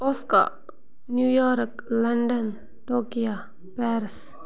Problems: constant background noise